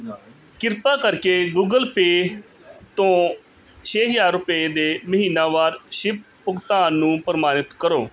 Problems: none marked